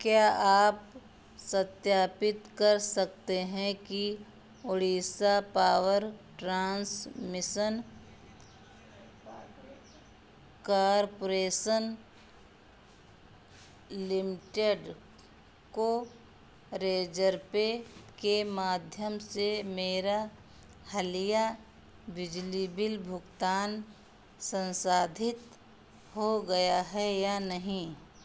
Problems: constant background noise